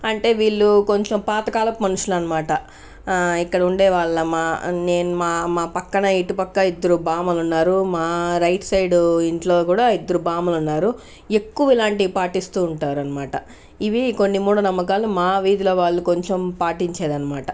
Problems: none marked